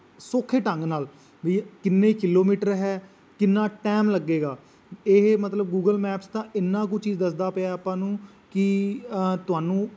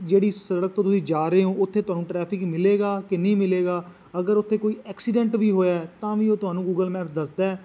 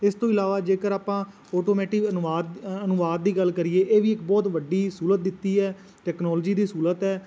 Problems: constant background noise